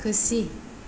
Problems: background sounds at intervals